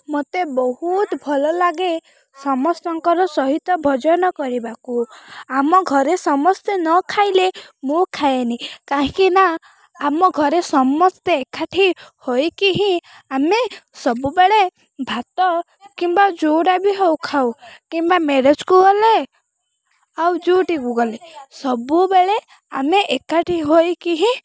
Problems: none marked